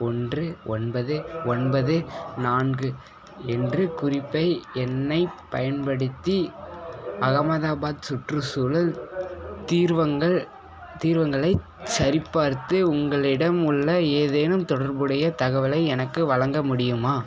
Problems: background sounds at intervals, background conversations at intervals